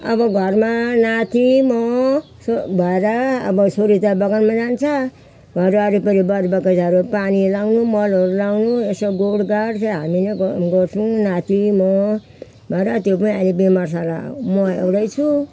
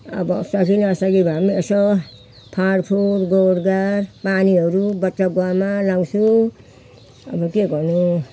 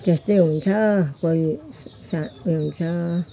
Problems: constant background noise, background conversations at intervals